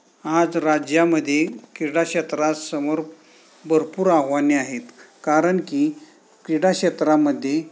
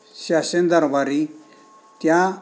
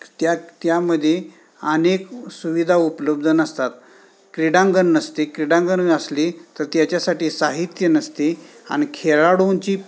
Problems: background sounds at intervals